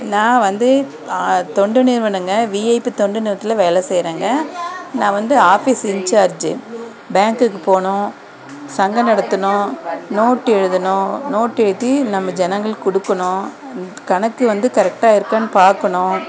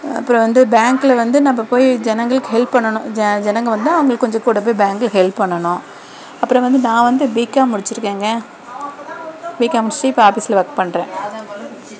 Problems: constant background noise, background conversations at intervals